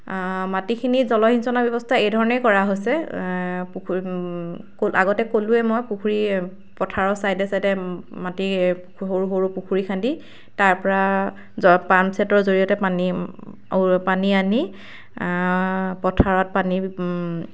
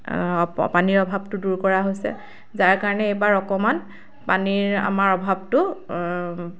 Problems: none marked